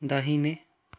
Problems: background sounds at intervals